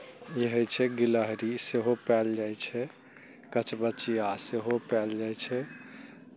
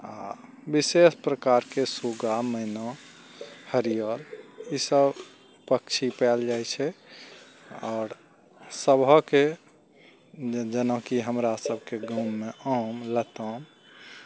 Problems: none marked